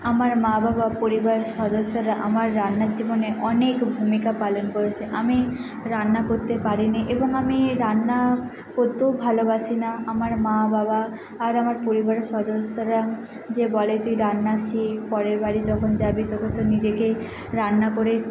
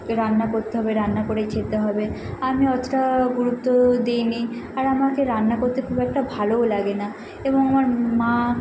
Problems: none marked